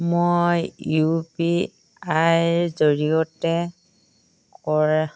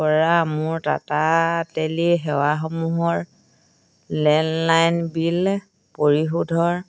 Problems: none marked